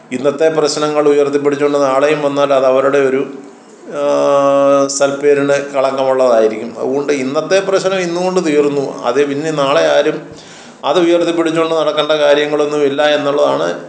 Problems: none marked